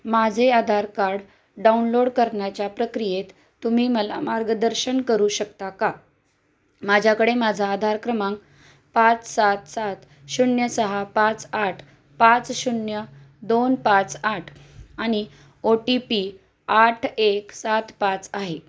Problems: constant background noise